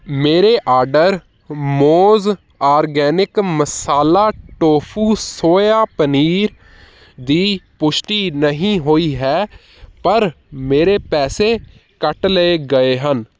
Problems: none marked